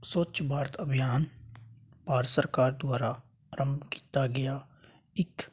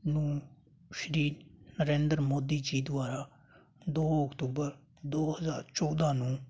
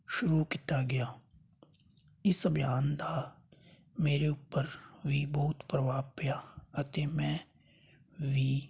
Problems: none marked